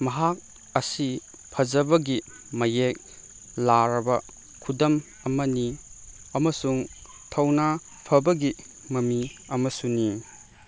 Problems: constant background noise